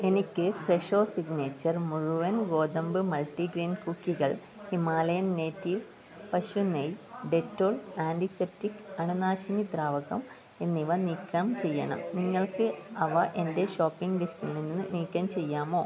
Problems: background conversations at intervals, low volume